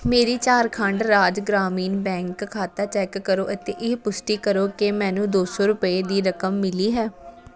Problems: background conversations at intervals